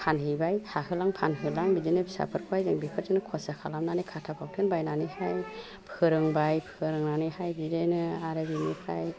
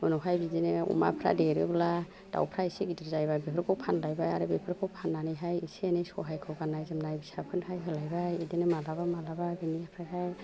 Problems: low volume